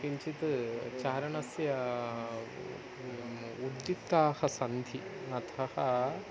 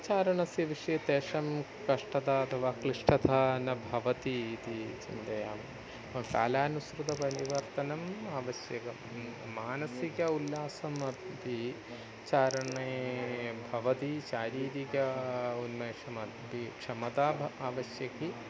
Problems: constant background noise, continuous background conversations, low volume